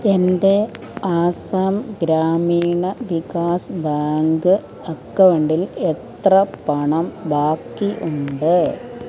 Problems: continuous background conversations